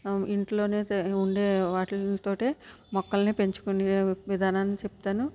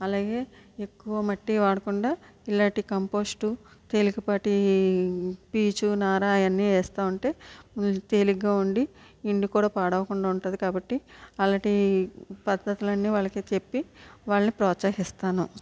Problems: low volume